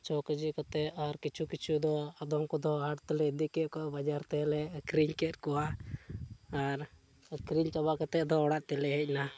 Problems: background sounds at intervals, low volume